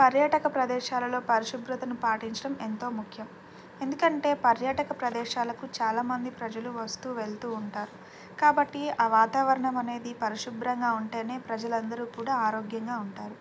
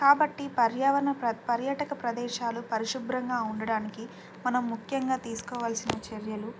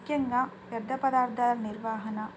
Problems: none marked